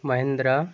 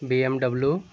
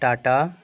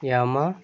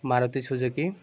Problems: background sounds at intervals